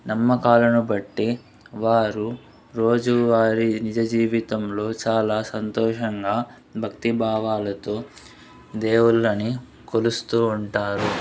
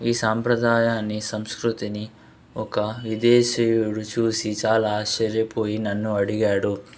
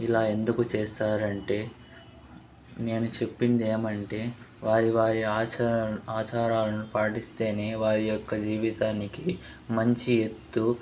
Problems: constant background noise, background conversations at intervals